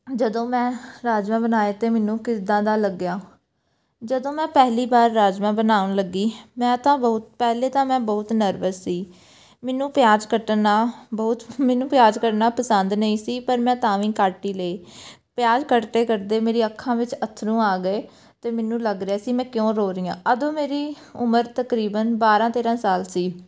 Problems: background sounds at intervals